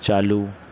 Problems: low volume